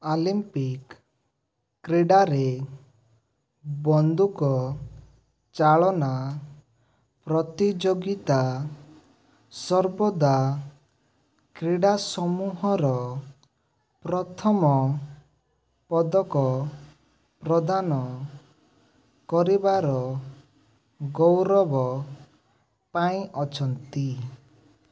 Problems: background sounds at intervals